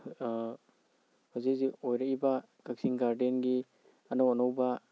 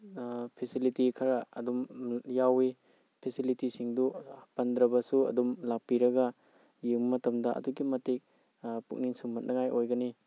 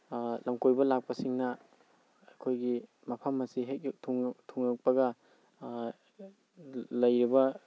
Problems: none marked